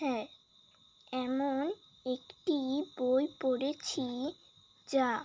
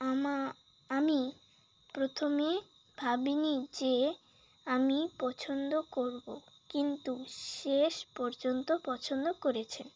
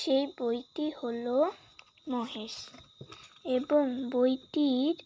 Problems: none marked